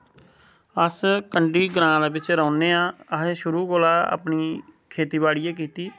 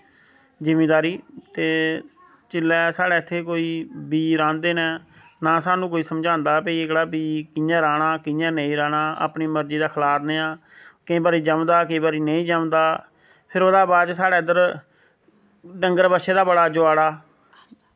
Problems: none marked